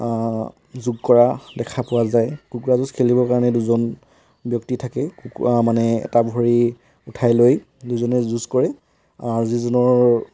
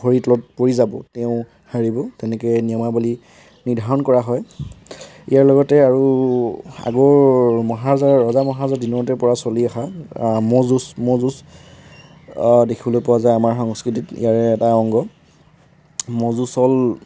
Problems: background sounds at intervals